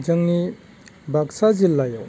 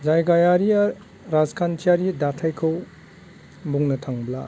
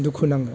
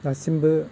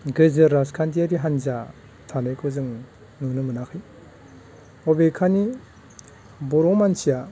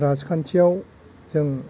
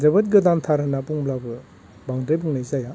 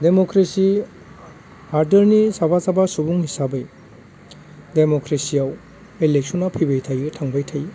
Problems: none marked